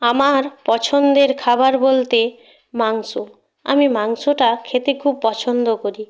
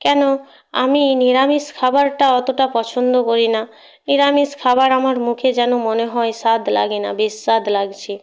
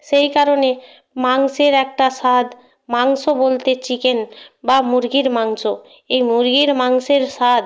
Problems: none marked